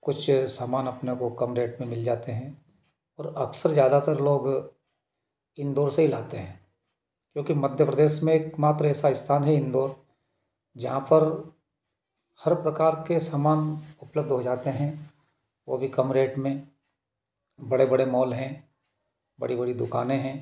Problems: none marked